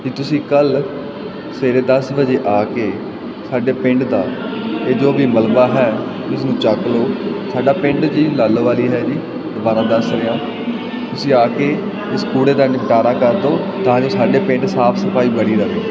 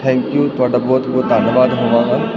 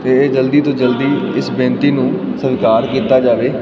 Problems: constant background noise